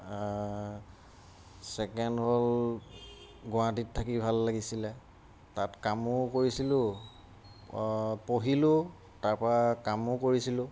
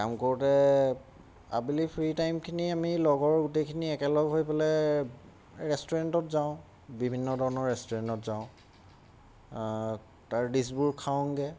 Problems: none marked